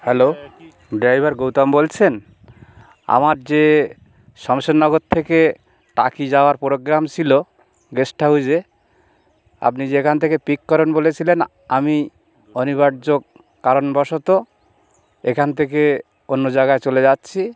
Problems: background sounds at intervals, background conversations at intervals